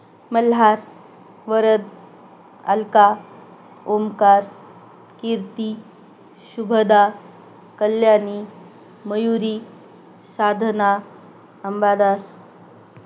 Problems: none marked